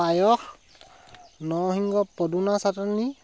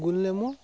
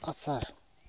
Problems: none marked